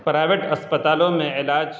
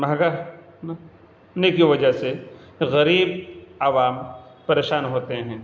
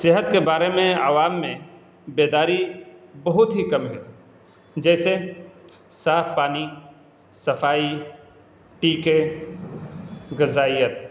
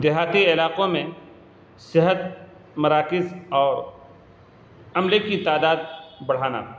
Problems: constant background noise